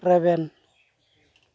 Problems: none marked